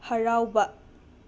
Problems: none marked